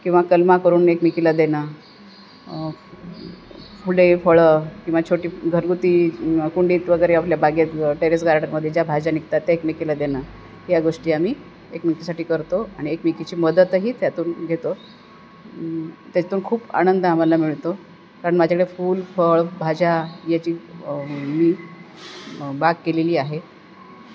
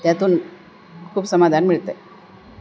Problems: none marked